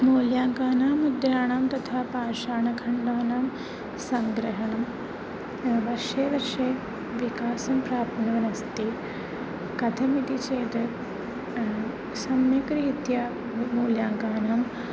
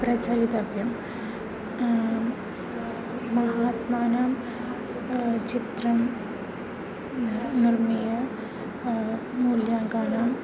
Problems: none marked